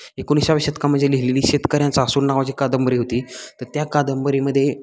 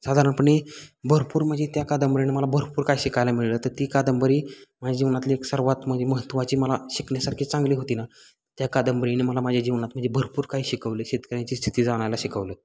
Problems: constant background noise, continuous background conversations